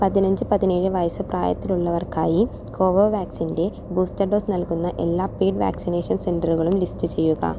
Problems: none marked